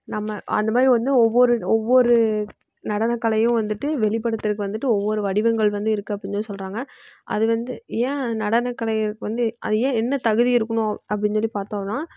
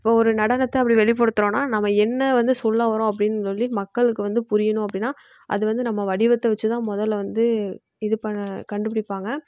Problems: background sounds at intervals, low volume